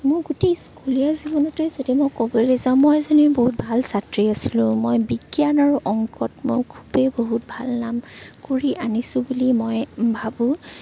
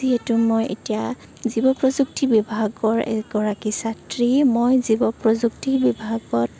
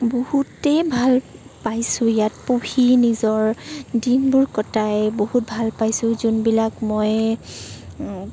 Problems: constant background noise